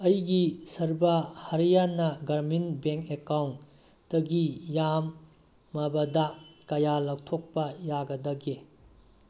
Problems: none marked